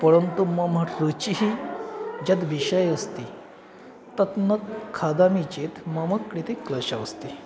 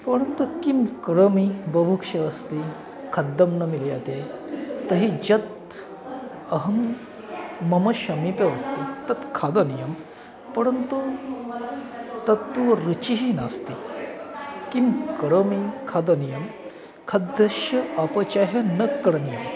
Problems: constant background noise